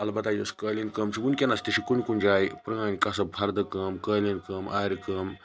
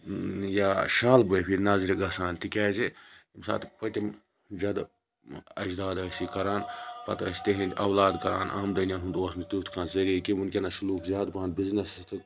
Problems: background sounds at intervals, continuous background conversations